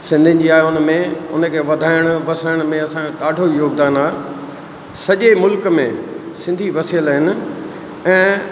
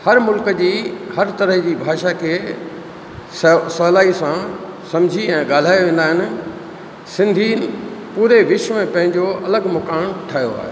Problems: constant background noise, echo